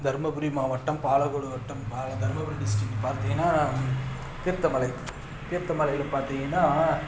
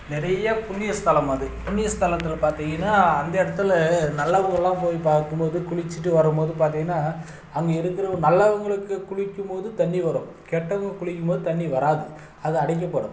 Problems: background sounds at intervals